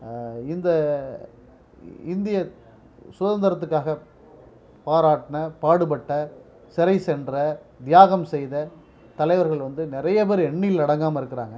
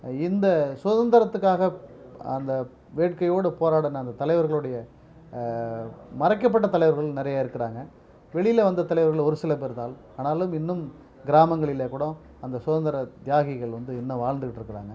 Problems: none marked